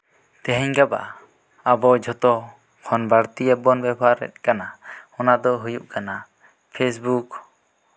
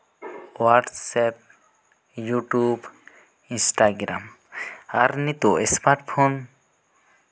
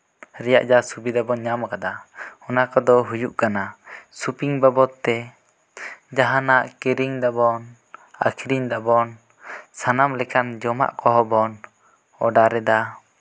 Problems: none marked